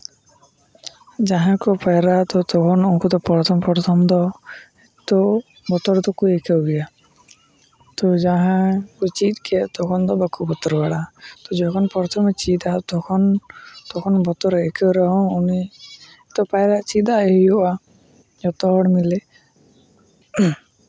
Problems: constant background noise